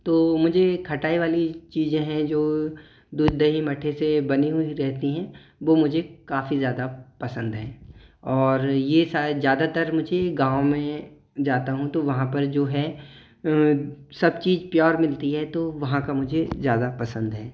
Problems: echo